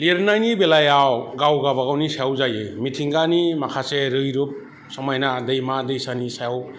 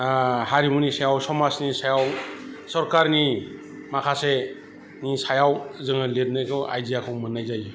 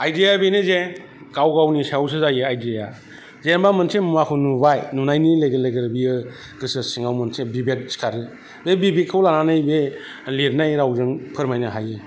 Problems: constant background noise